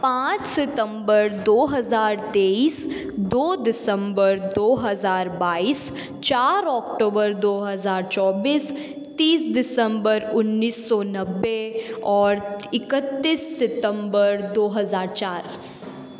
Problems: constant background noise